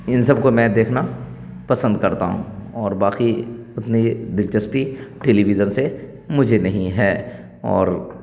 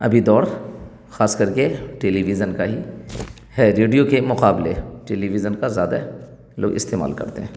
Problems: none marked